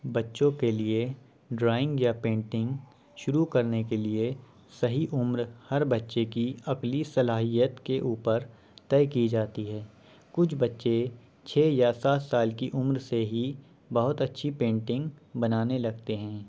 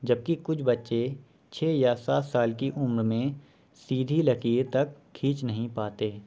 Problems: none marked